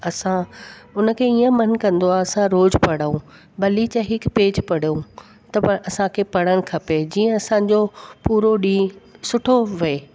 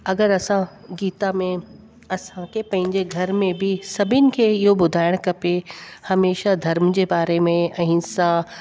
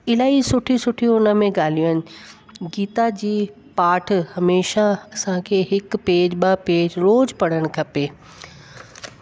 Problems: constant background noise